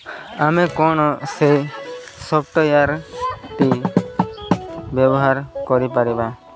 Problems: constant background noise, background conversations at intervals